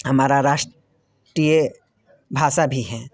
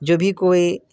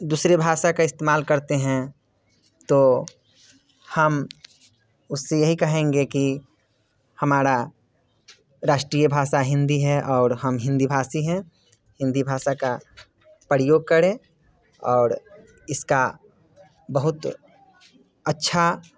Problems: constant background noise